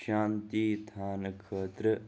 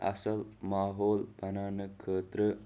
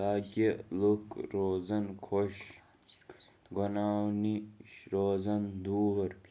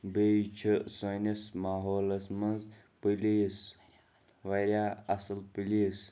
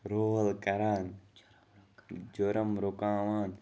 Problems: background sounds at intervals